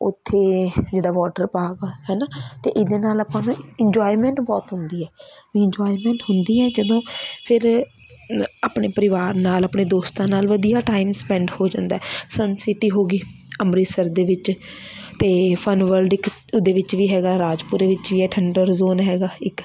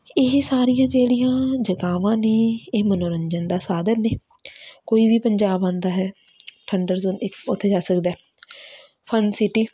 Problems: constant background noise, background conversations at intervals